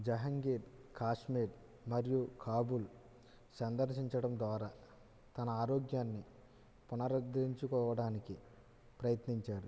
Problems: low volume